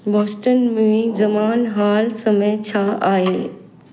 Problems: echo